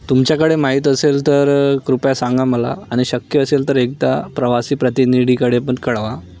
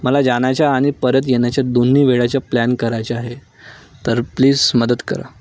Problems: none marked